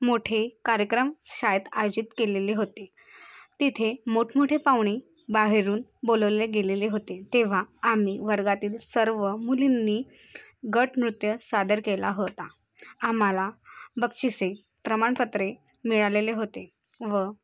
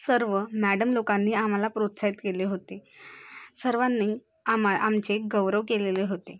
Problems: none marked